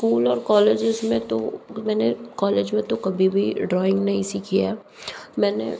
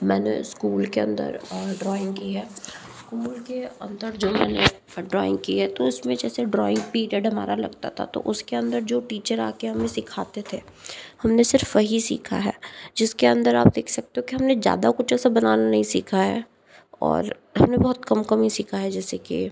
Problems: background sounds at intervals